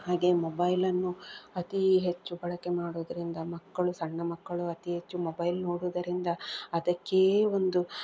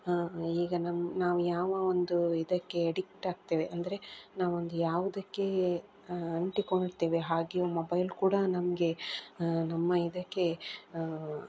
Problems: background sounds at intervals